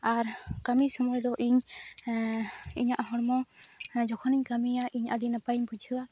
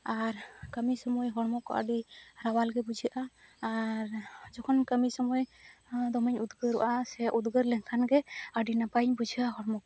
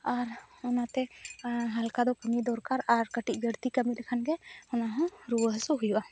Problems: none marked